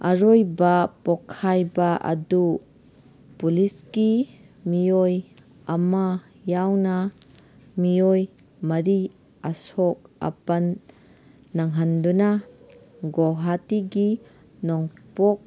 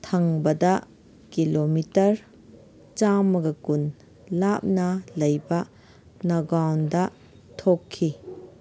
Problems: background sounds at intervals